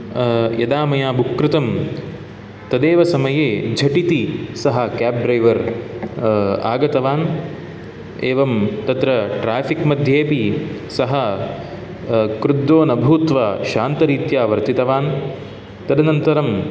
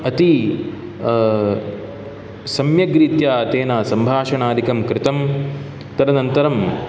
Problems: background sounds at intervals